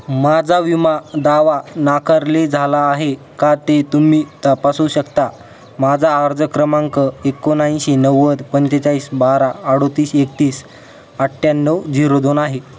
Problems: constant background noise, continuous background conversations